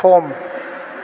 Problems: constant background noise